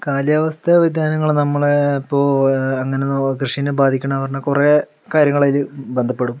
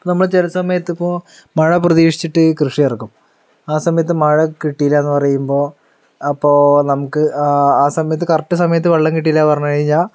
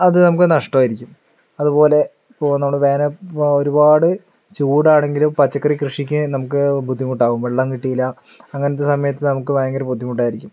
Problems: low volume